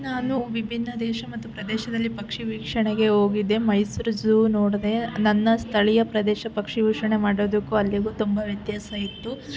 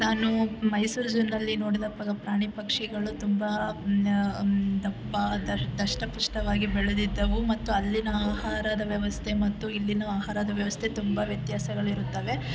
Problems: constant background noise